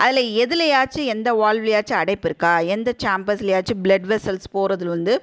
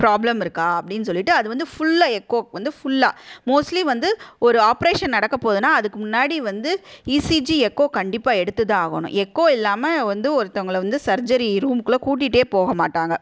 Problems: none marked